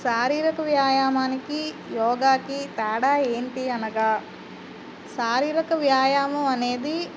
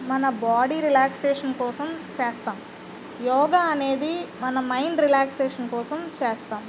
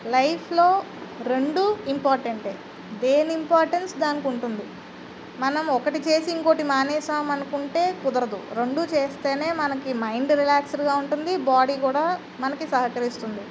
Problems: constant background noise